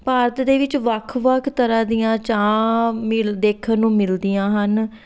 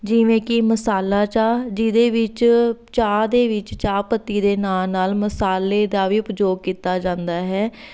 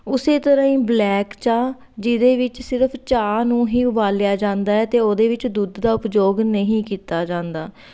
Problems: background sounds at intervals